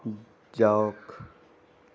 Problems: background conversations at intervals